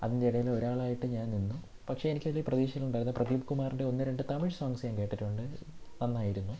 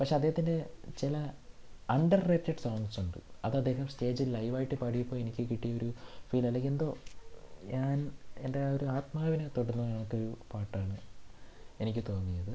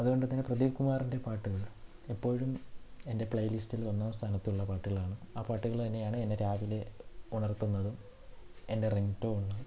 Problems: none marked